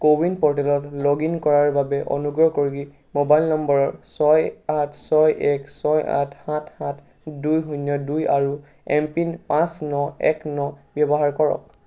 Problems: background sounds at intervals